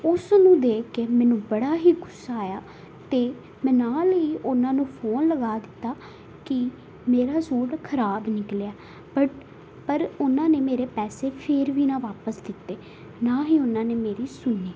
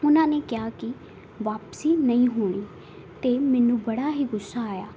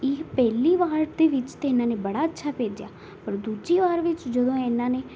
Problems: none marked